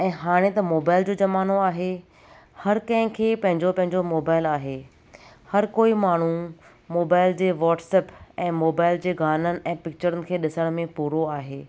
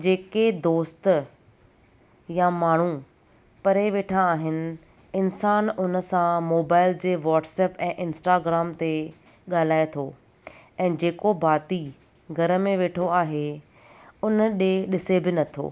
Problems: none marked